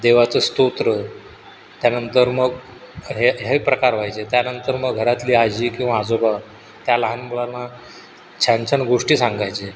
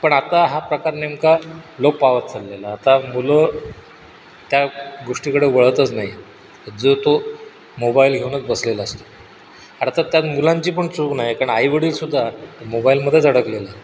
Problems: none marked